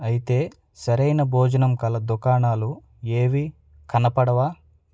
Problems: none marked